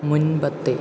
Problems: low volume